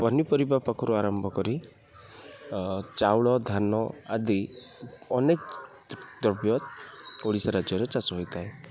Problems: background sounds at intervals, low volume